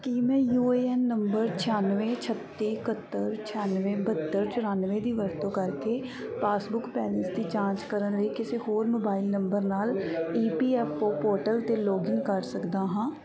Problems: background sounds at intervals, background conversations at intervals